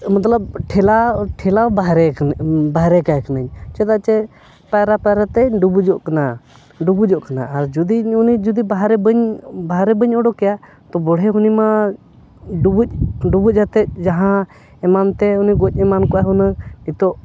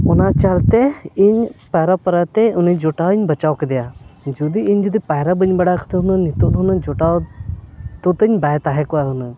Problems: background sounds at intervals